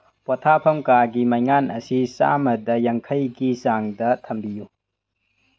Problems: none marked